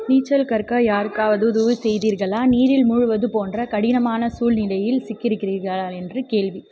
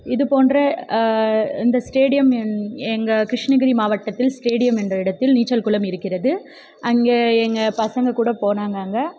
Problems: background conversations at intervals